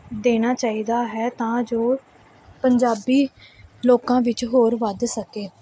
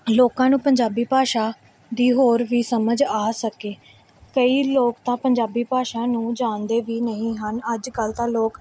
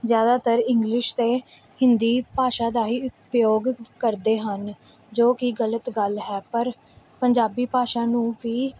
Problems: background sounds at intervals